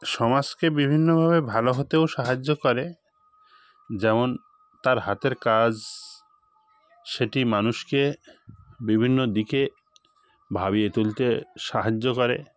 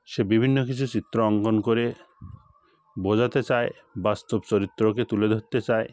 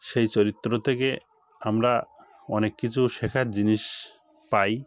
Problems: constant background noise, background conversations at intervals